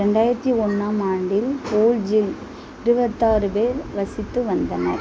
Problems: constant background noise, background conversations at intervals